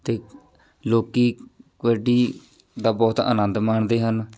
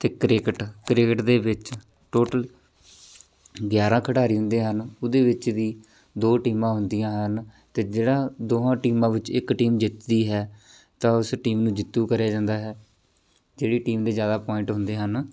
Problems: background sounds at intervals